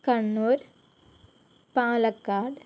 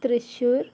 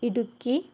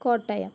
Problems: none marked